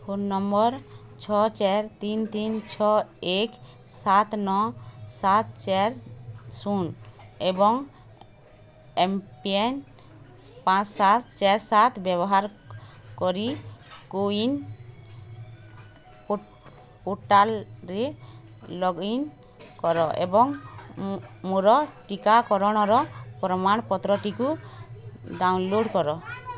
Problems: constant background noise